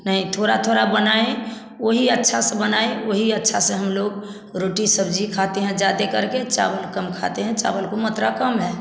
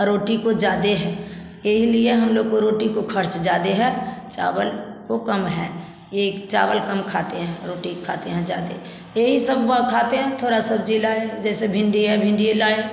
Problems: none marked